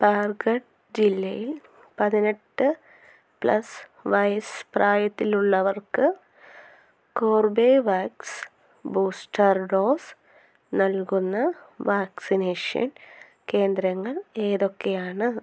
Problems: none marked